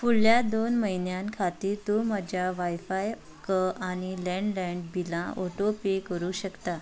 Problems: background sounds at intervals